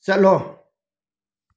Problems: none marked